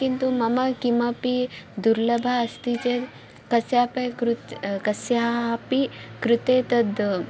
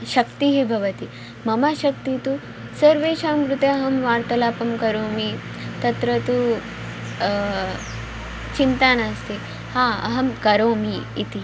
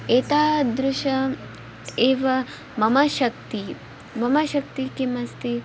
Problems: background sounds at intervals